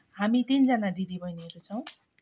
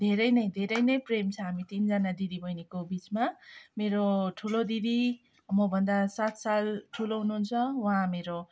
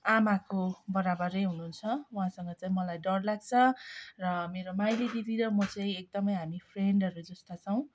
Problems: background sounds at intervals, background conversations at intervals